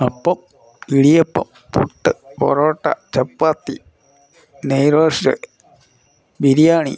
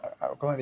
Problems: background conversations at intervals